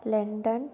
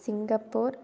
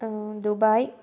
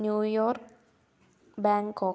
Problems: low volume